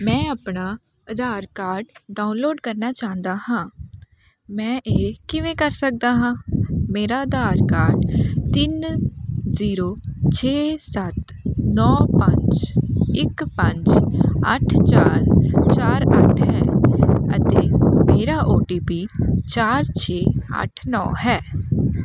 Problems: constant background noise